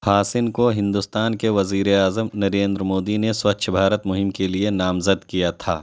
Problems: none marked